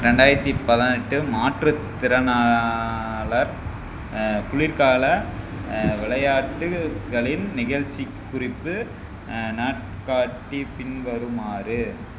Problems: constant background noise